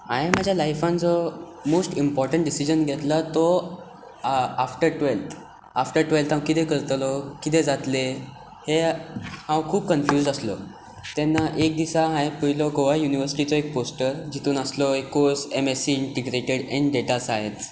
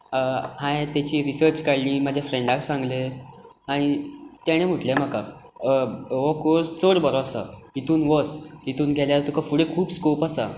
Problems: background sounds at intervals